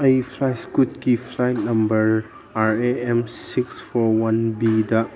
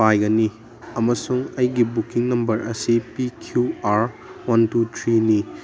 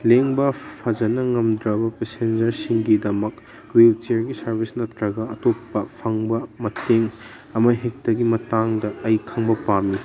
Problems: background conversations at intervals